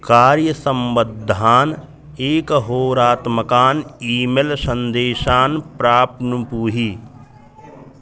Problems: constant background noise, background conversations at intervals